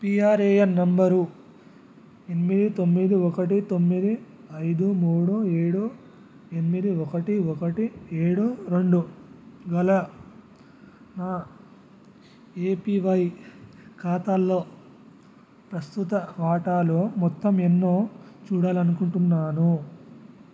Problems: none marked